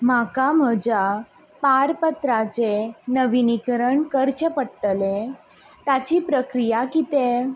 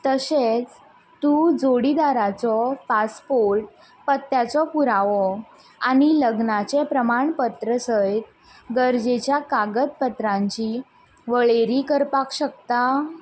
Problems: none marked